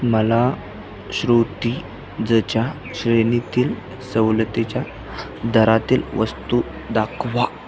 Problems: constant background noise